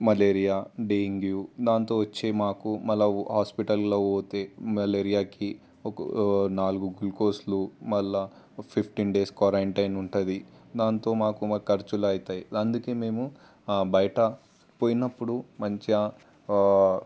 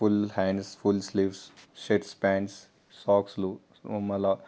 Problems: constant background noise